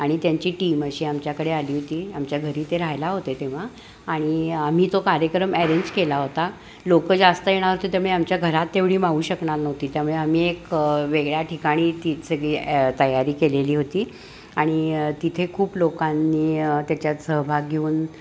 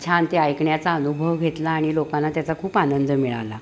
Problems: constant background noise, background conversations at intervals